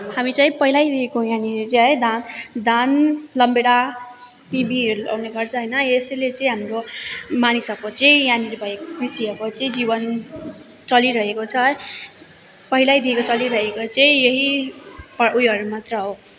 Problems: constant background noise